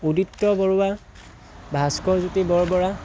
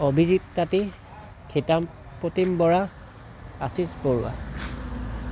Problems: constant background noise